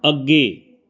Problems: continuous background conversations